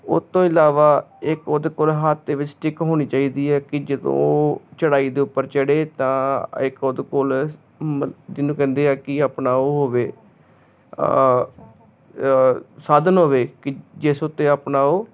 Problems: constant background noise